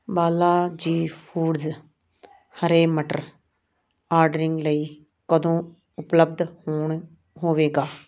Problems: background sounds at intervals